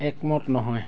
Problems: background conversations at intervals